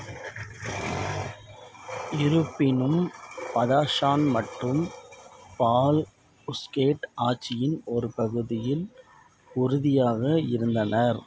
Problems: background sounds at intervals